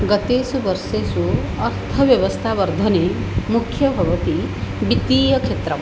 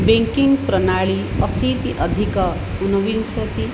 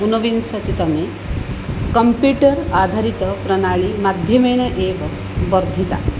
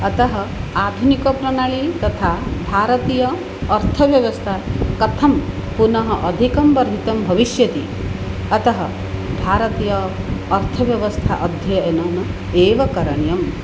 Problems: constant background noise